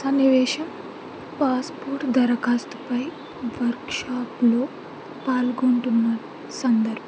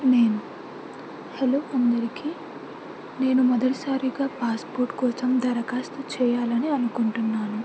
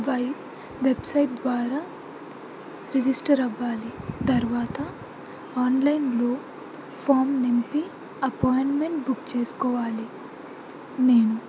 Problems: constant background noise, continuous background conversations